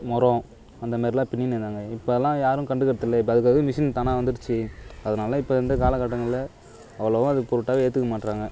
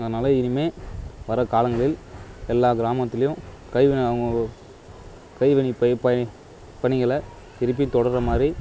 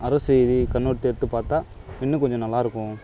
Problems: none marked